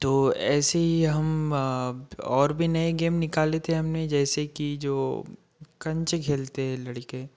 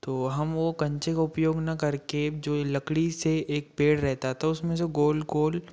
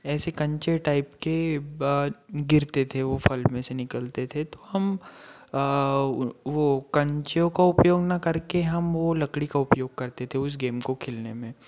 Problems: background sounds at intervals